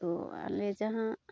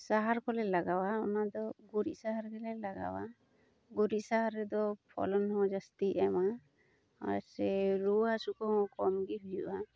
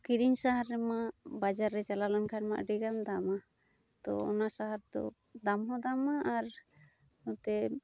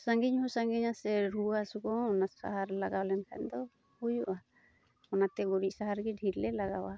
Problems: constant background noise